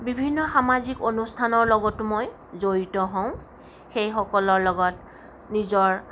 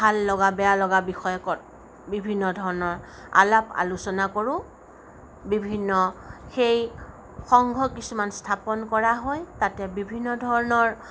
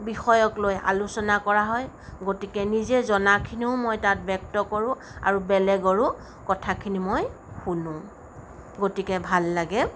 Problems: none marked